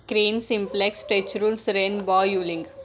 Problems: constant background noise, background conversations at intervals